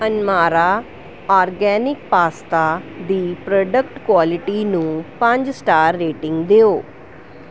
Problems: background sounds at intervals